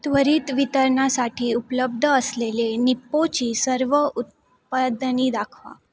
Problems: constant background noise